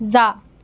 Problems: background sounds at intervals